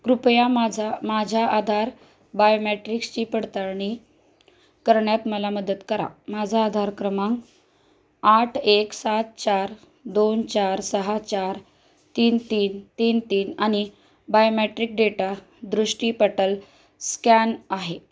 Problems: background sounds at intervals, background conversations at intervals